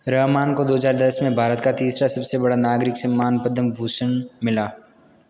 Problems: constant background noise